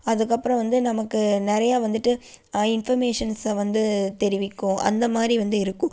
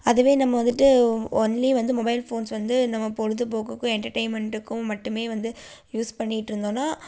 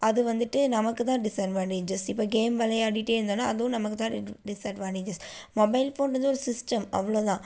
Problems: none marked